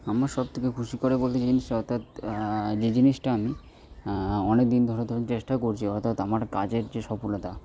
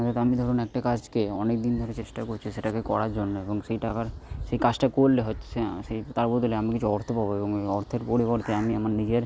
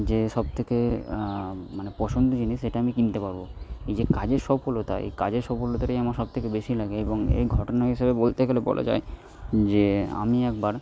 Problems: background sounds at intervals